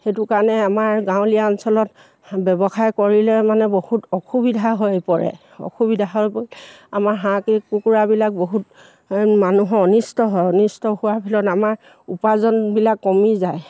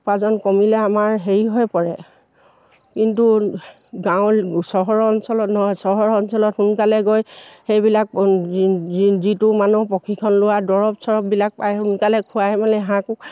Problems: none marked